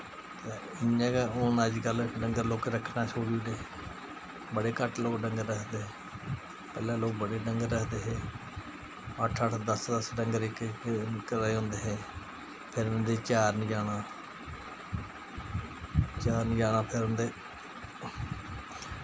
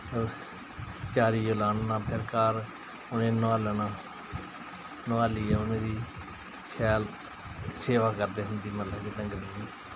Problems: constant background noise